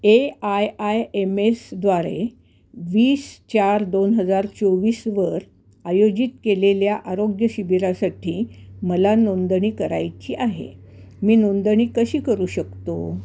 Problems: constant background noise